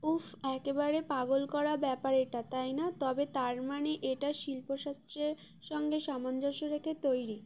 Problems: constant background noise